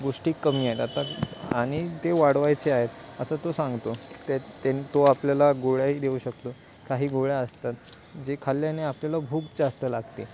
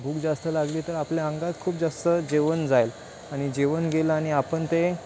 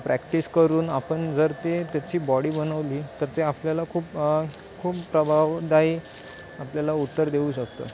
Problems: constant background noise, background conversations at intervals